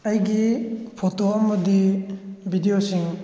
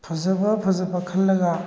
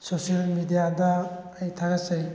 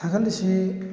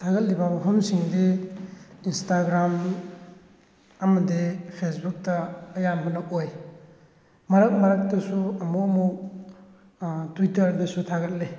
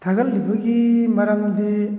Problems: background sounds at intervals